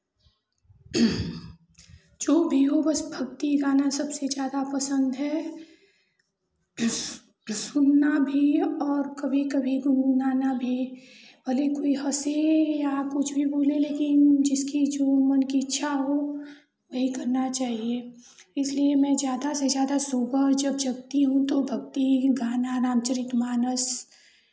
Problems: constant background noise, continuous background conversations